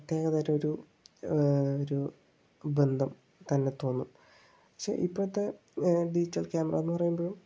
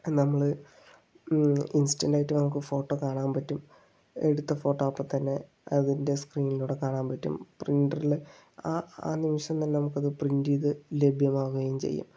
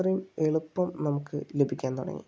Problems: low volume